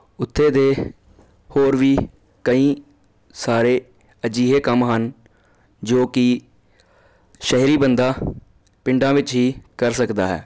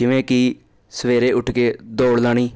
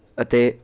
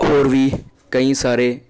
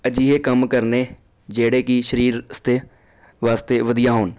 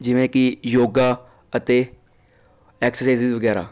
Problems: constant background noise